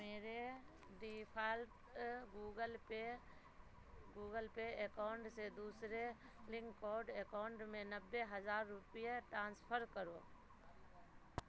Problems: low volume